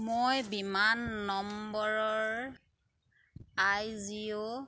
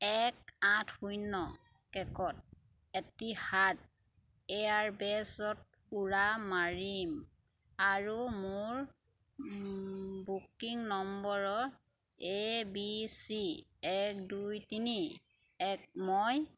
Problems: none marked